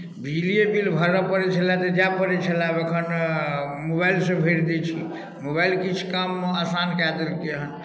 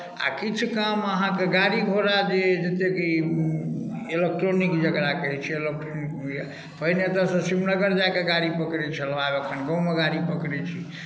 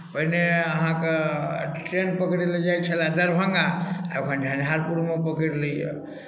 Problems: none marked